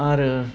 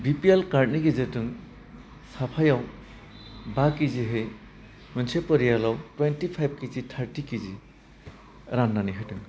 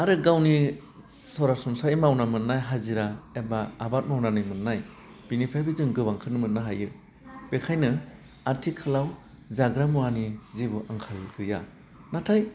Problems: constant background noise